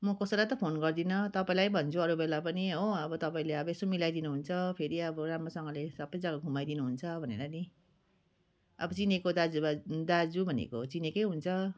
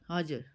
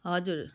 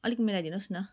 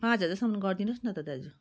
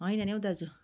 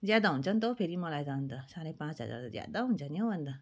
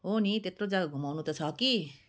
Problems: continuous background conversations